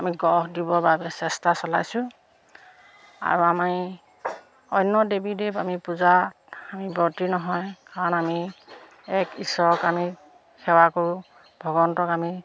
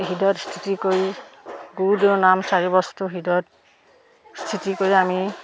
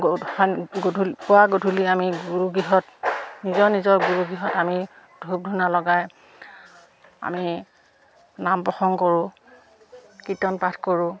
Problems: none marked